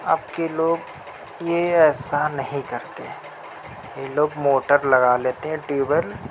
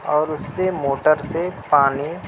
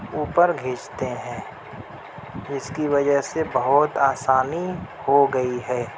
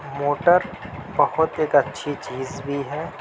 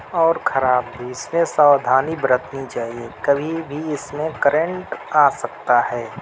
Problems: constant background noise